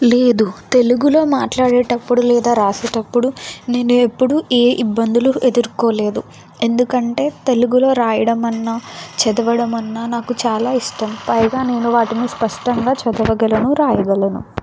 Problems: constant background noise